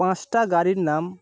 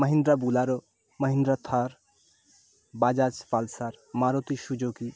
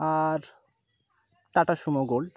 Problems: constant background noise